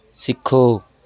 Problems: background conversations at intervals